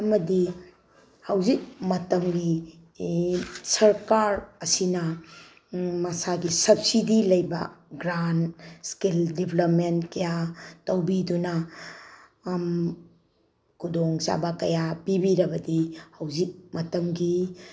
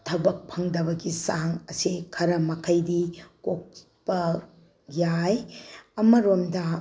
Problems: background sounds at intervals